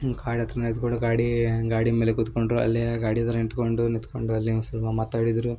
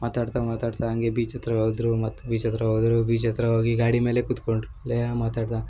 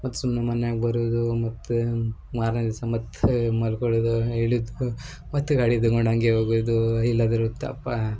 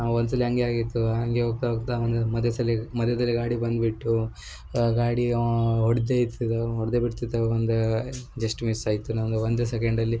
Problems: background sounds at intervals